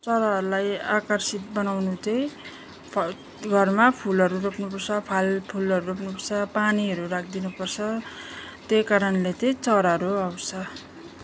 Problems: none marked